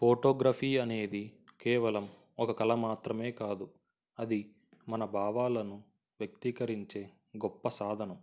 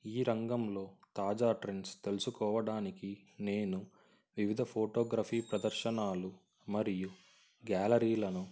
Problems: constant background noise